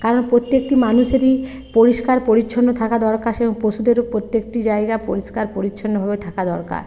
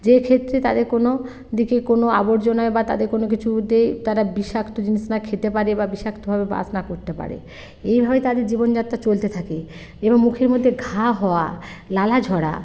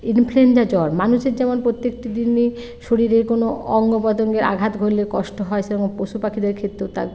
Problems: constant background noise